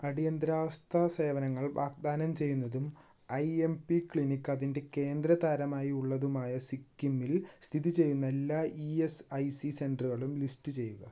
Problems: background sounds at intervals